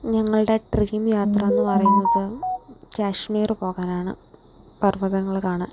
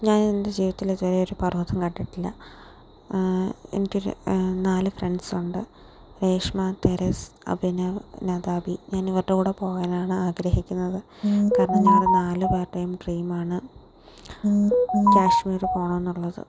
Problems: background sounds at intervals